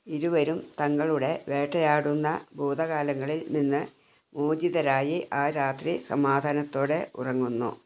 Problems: none marked